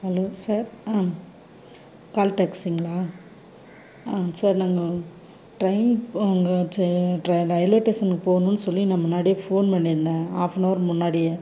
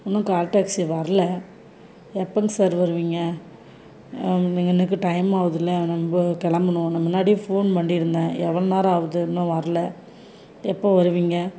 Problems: none marked